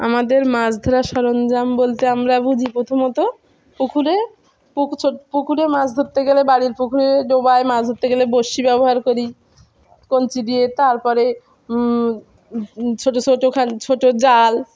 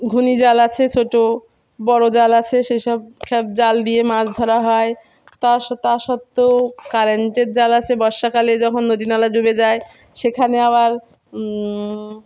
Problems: none marked